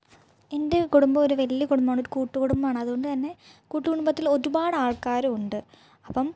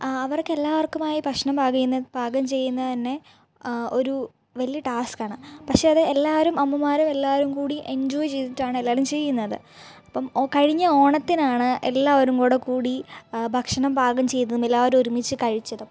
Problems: low volume